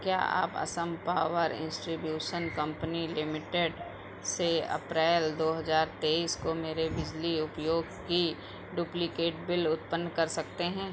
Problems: constant background noise